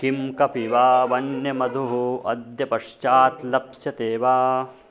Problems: background conversations at intervals